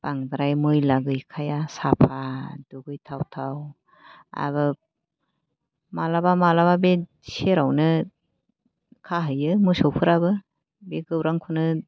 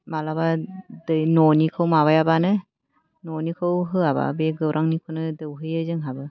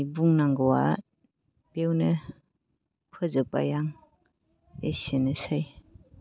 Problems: low volume